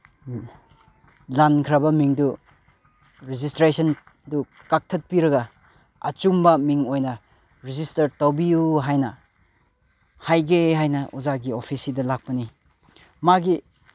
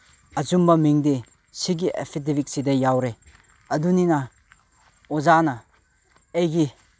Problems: background sounds at intervals